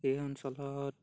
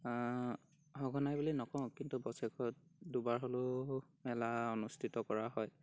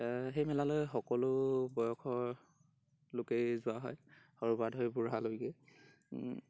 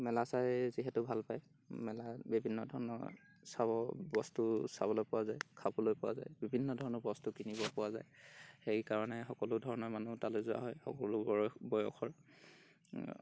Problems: background sounds at intervals